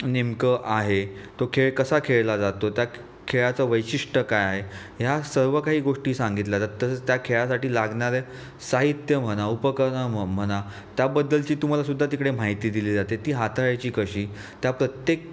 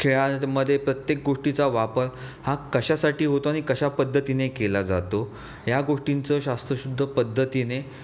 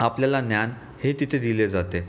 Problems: none marked